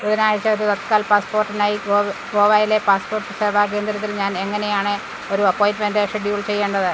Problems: constant background noise